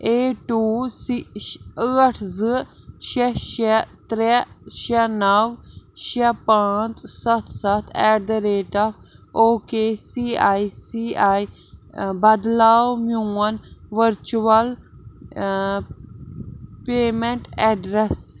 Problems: constant background noise